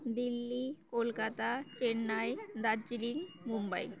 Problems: none marked